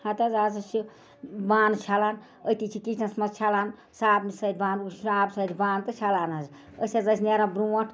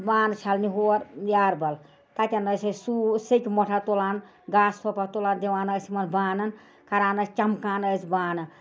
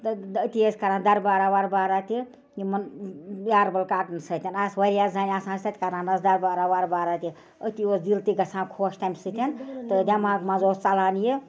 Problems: background conversations at intervals